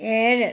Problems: none marked